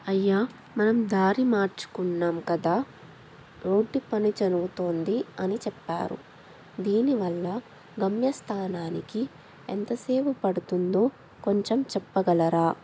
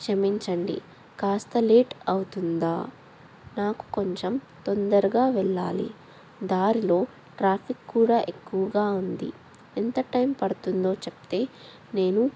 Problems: none marked